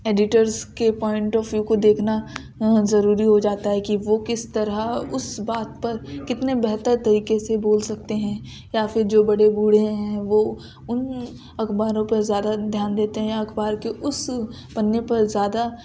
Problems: background sounds at intervals